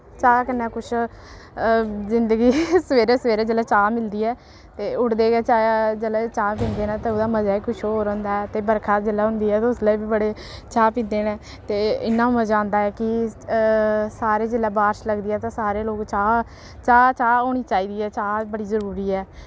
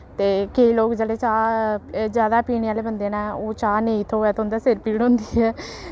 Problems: constant background noise